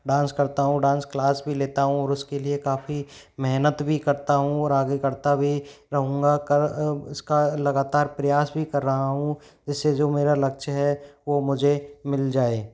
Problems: none marked